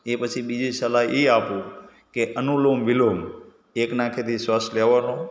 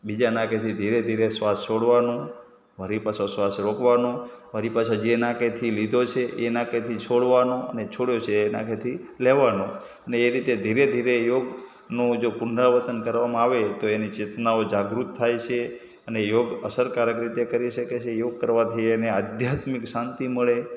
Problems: background sounds at intervals